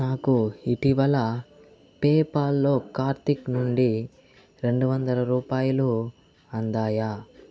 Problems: constant background noise